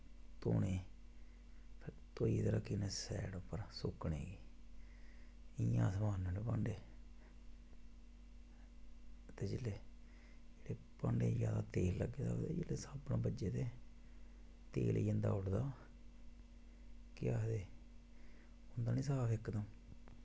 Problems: constant background noise